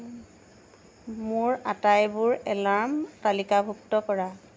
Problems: constant background noise